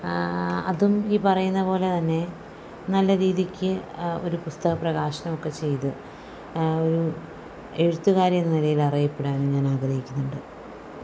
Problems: none marked